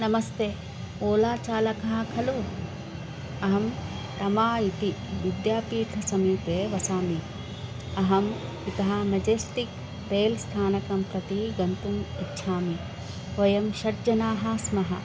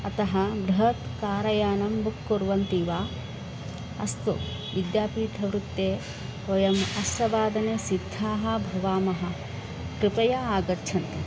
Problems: constant background noise